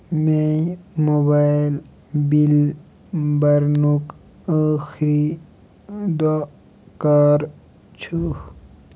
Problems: constant background noise